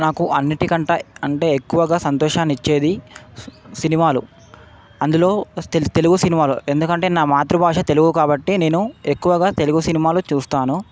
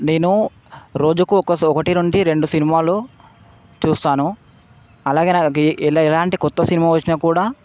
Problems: constant background noise